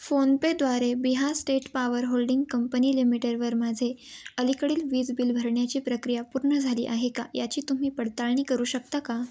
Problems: none marked